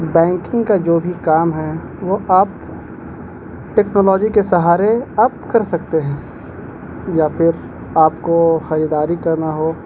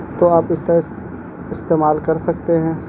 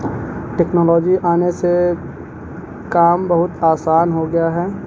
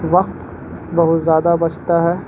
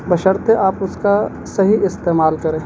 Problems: constant background noise